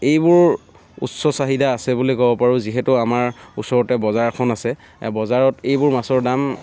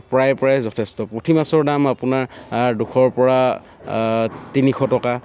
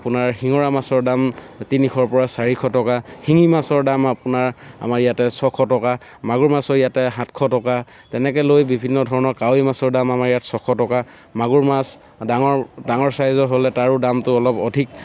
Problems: none marked